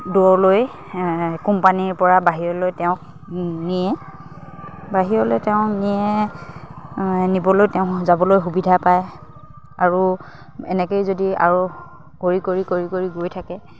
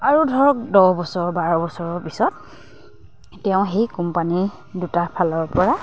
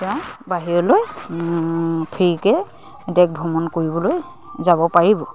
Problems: none marked